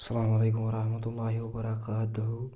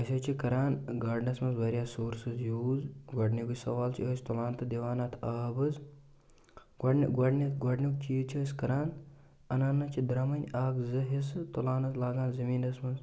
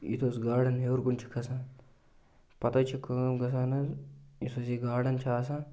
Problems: constant background noise